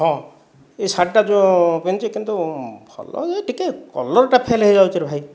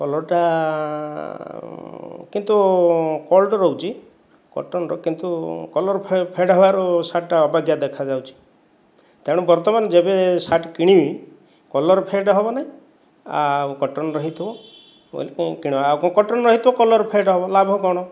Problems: background sounds at intervals